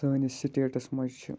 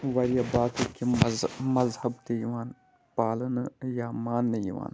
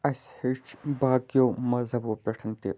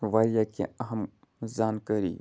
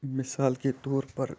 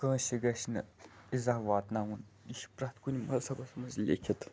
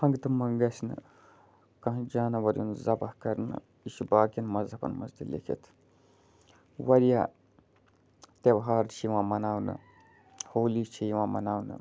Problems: constant background noise